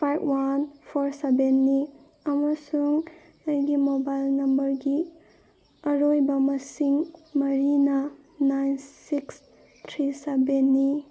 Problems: background sounds at intervals